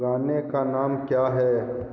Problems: constant background noise